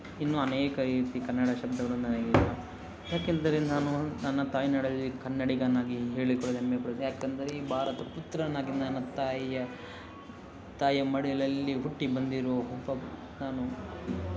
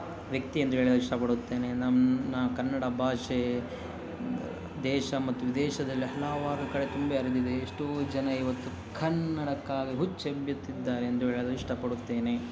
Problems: background conversations at intervals